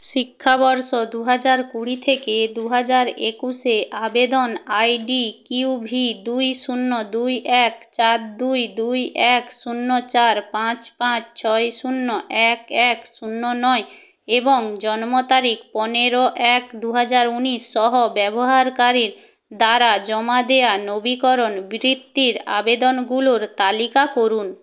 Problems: none marked